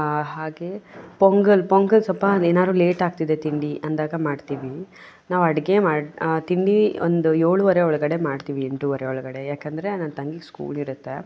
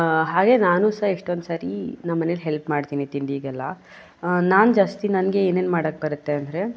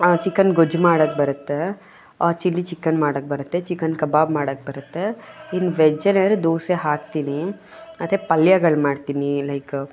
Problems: none marked